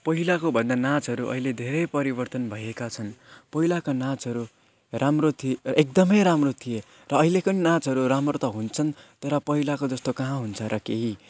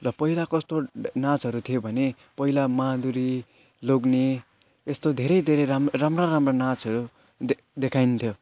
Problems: constant background noise